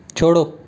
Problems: none marked